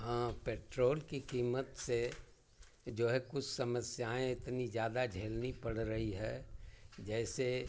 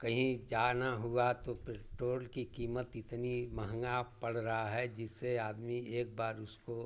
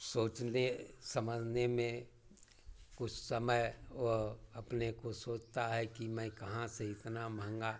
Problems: none marked